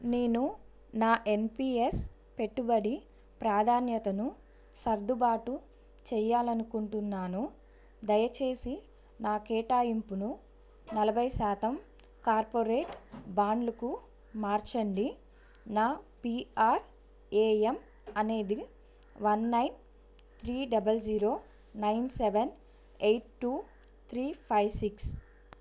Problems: background sounds at intervals